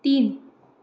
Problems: constant background noise